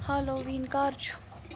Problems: none marked